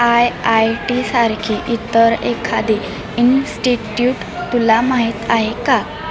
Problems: continuous background conversations